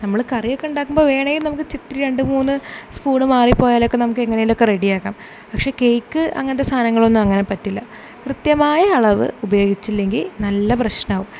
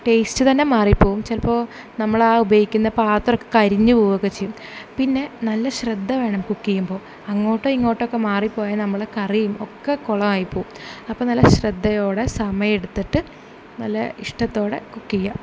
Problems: none marked